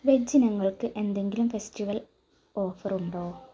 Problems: none marked